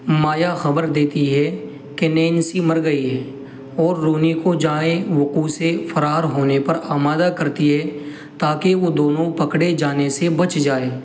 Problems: constant background noise